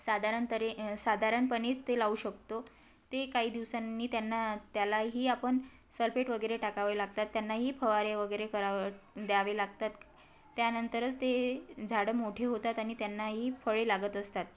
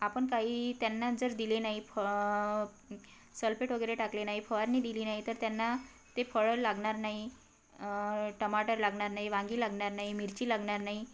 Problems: constant background noise, background conversations at intervals